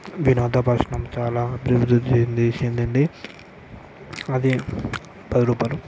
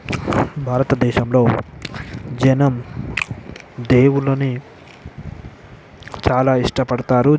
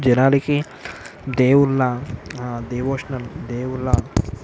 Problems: none marked